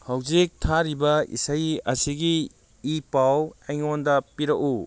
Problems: none marked